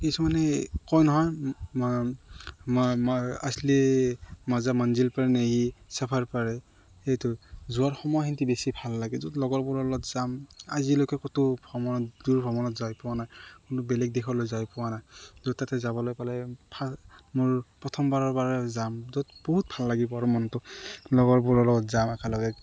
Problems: none marked